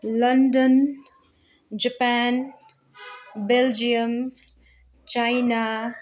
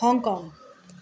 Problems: none marked